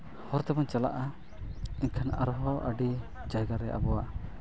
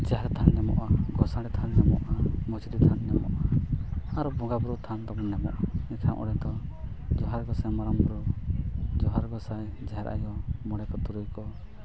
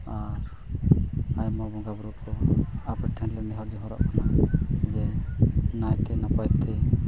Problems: constant background noise